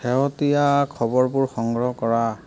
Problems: background conversations at intervals